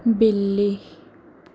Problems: none marked